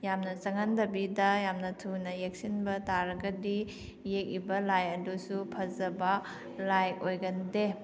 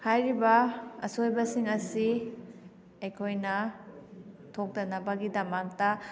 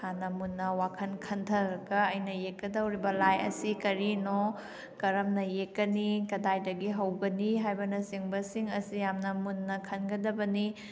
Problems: background sounds at intervals